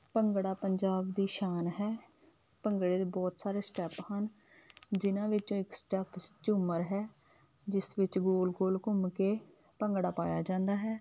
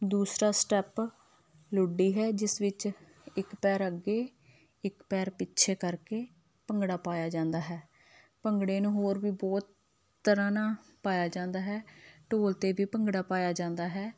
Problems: none marked